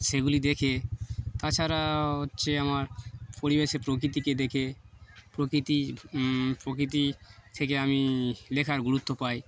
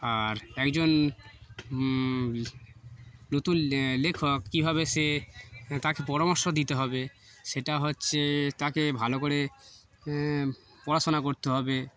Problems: constant background noise, background conversations at intervals